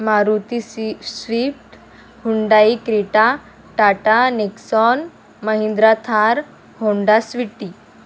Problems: none marked